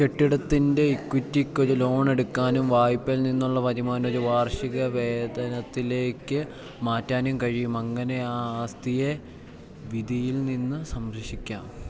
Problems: none marked